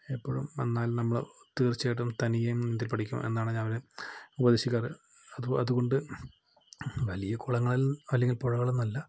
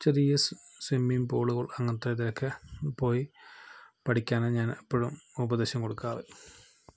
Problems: low volume